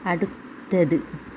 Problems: none marked